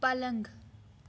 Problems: none marked